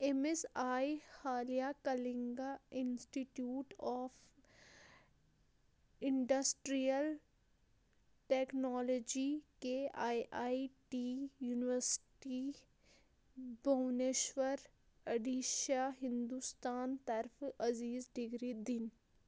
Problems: constant background noise